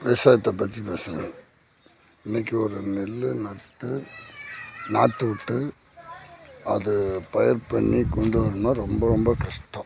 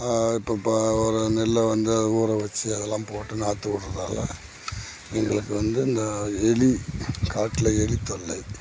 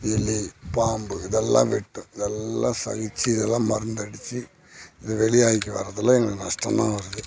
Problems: background sounds at intervals